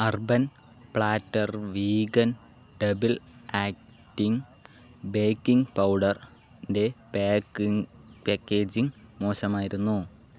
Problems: none marked